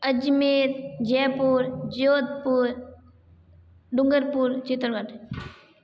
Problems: background sounds at intervals